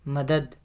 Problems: constant background noise